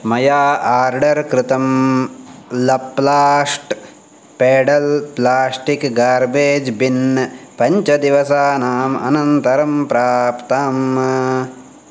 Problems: none marked